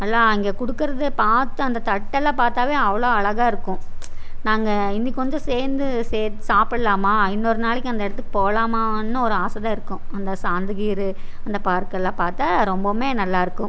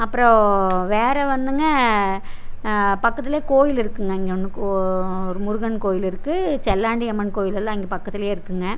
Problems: none marked